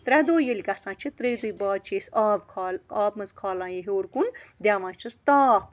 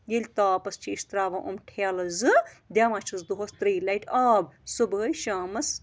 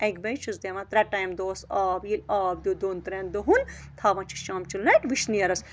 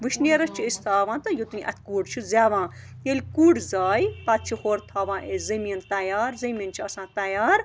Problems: constant background noise